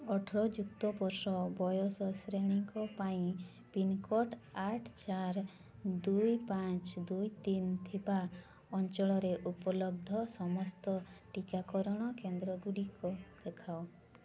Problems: constant background noise, continuous background conversations